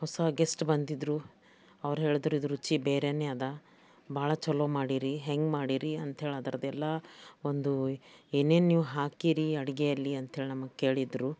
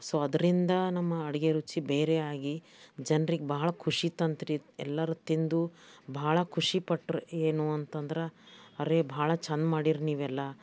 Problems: background sounds at intervals